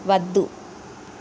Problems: constant background noise